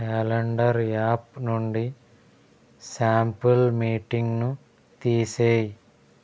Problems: constant background noise